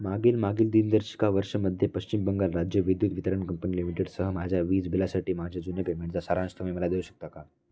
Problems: background conversations at intervals